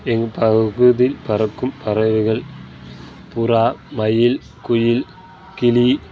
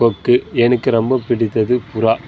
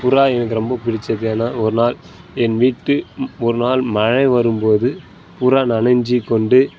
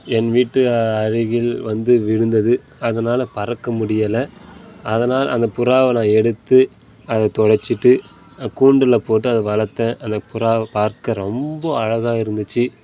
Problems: none marked